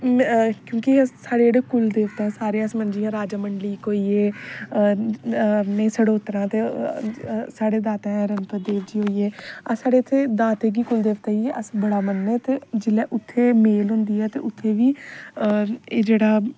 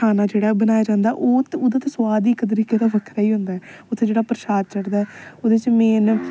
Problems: background sounds at intervals